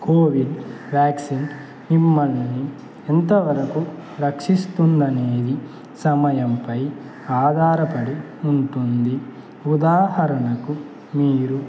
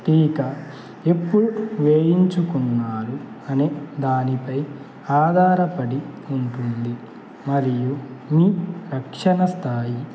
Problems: constant background noise